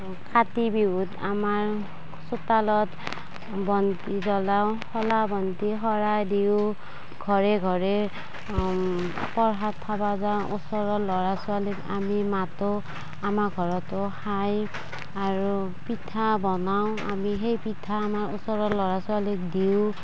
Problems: constant background noise, background conversations at intervals